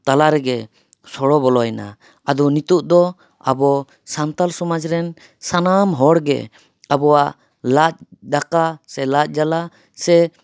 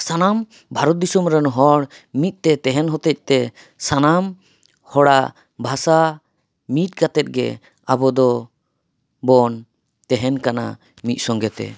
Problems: none marked